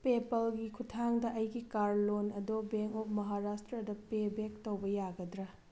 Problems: none marked